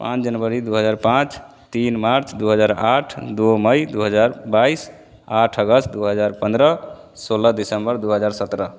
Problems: none marked